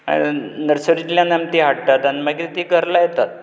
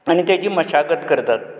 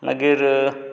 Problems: constant background noise